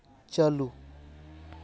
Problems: background sounds at intervals